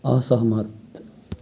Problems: background sounds at intervals